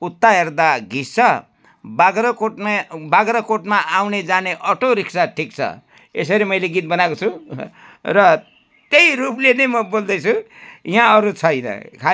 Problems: constant background noise